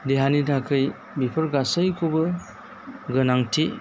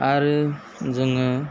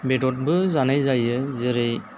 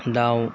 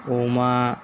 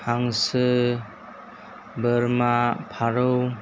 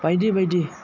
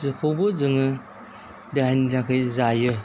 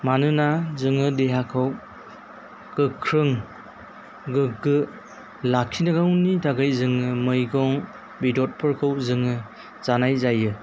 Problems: constant background noise